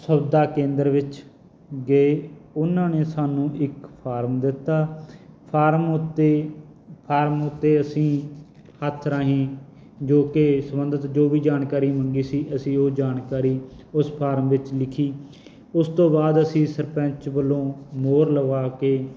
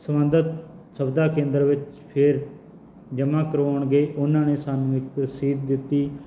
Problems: none marked